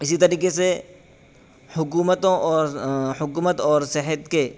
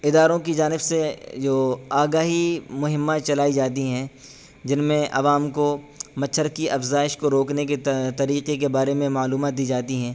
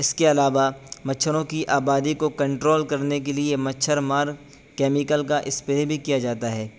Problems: constant background noise